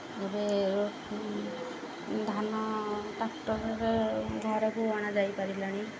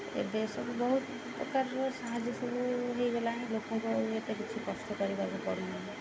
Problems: constant background noise